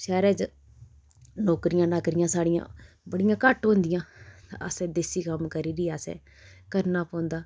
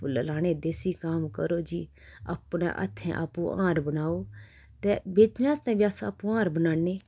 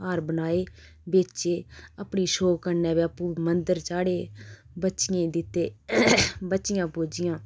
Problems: constant background noise